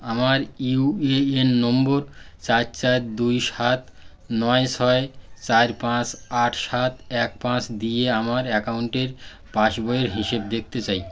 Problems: constant background noise